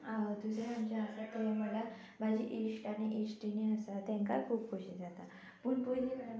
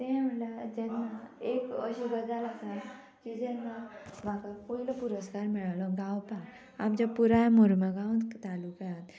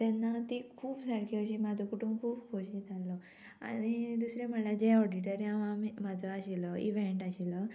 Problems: constant background noise